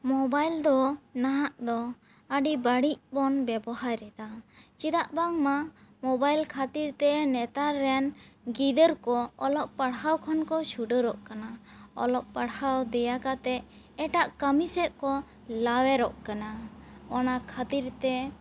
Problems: background sounds at intervals